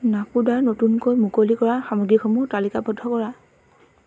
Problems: constant background noise